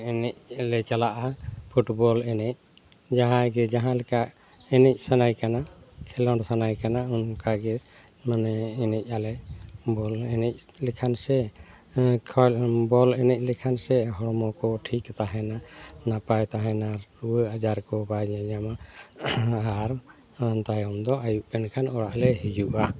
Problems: constant background noise